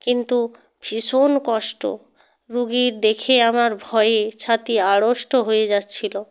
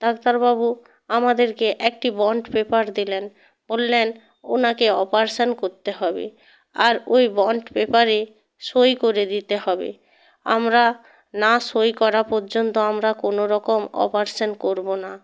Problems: none marked